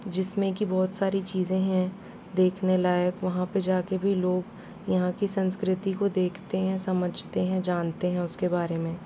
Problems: constant background noise